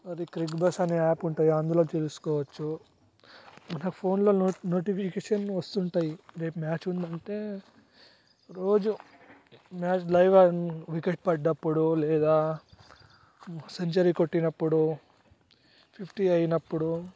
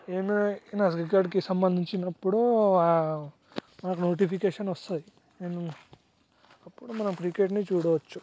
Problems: background sounds at intervals, low volume